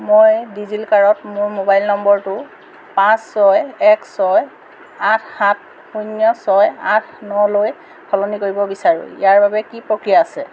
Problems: background sounds at intervals